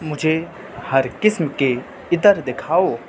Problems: constant background noise